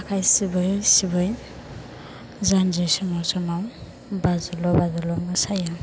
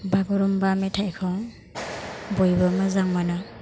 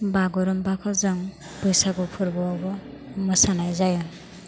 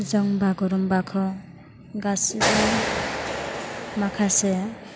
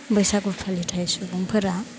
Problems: constant background noise